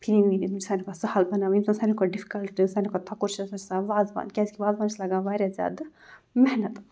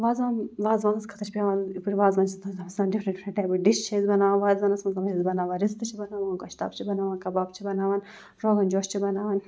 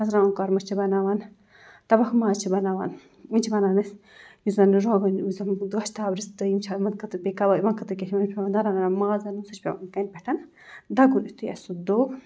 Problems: none marked